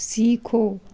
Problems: constant background noise